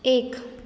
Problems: constant background noise, echo